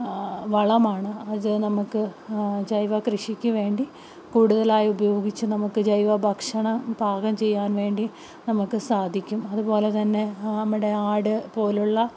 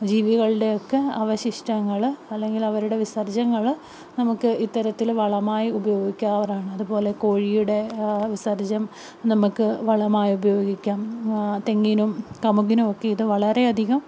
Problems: none marked